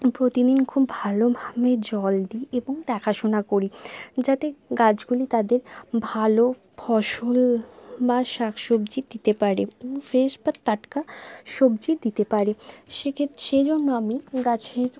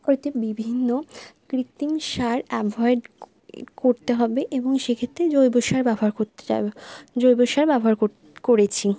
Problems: none marked